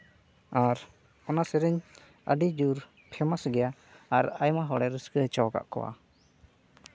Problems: none marked